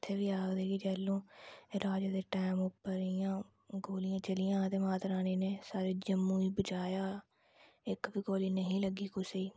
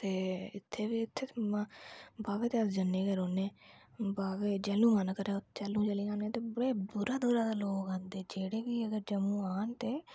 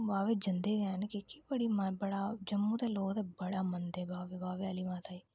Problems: none marked